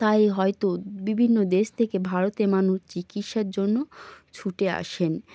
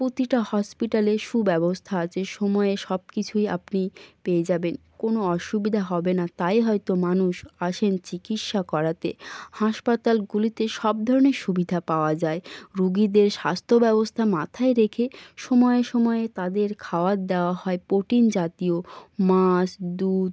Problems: none marked